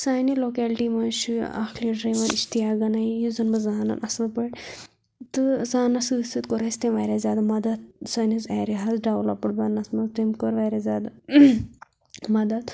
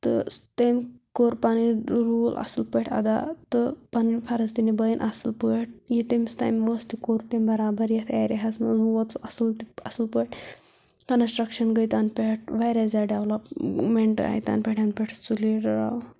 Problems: none marked